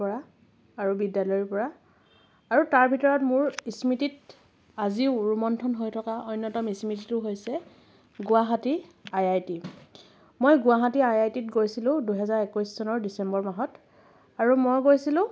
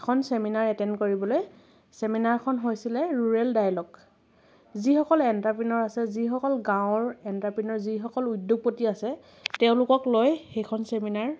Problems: none marked